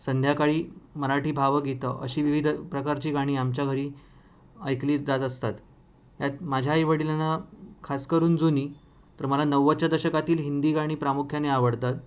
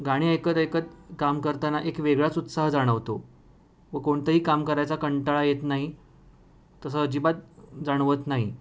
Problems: none marked